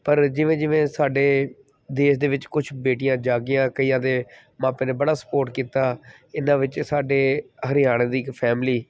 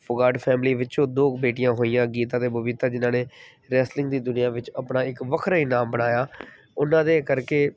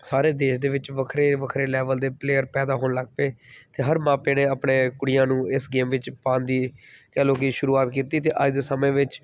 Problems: background sounds at intervals